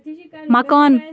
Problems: background sounds at intervals, background conversations at intervals